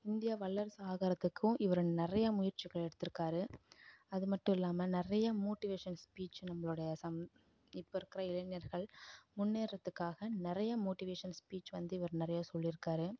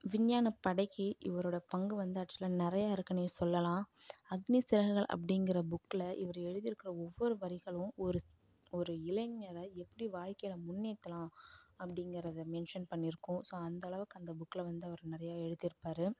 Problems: low volume